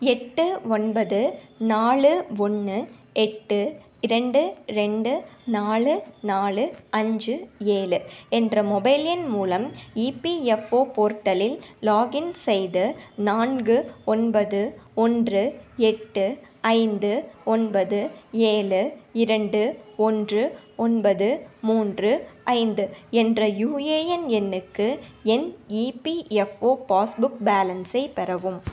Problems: none marked